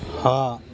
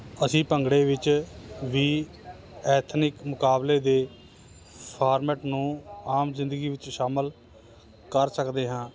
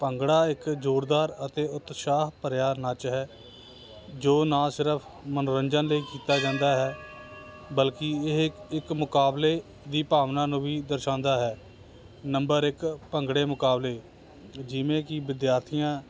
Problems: constant background noise